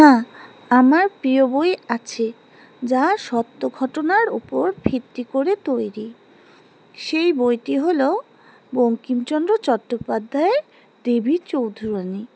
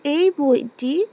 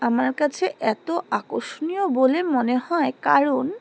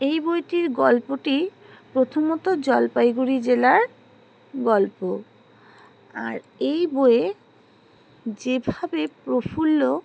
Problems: none marked